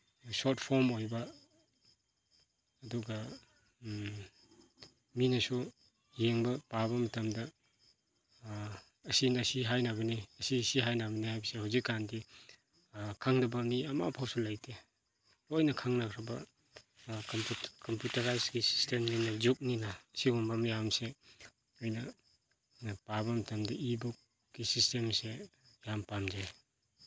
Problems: background sounds at intervals